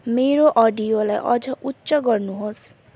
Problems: none marked